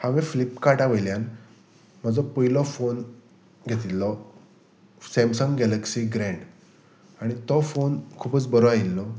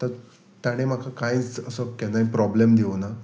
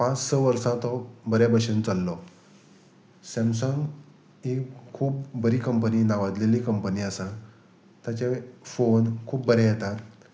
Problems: constant background noise